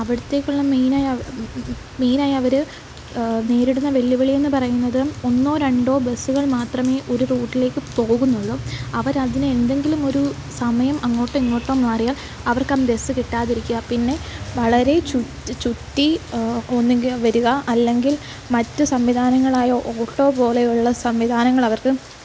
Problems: constant background noise